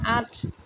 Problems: constant background noise